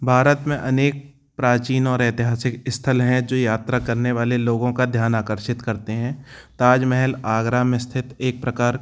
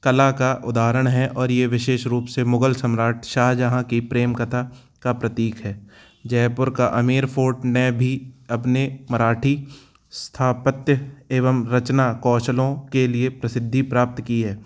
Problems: none marked